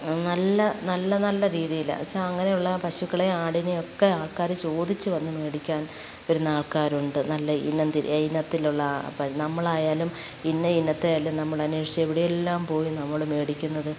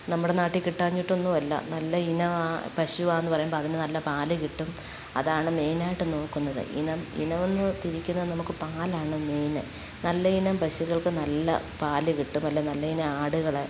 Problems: background sounds at intervals